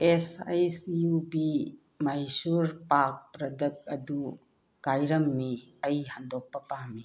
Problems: background sounds at intervals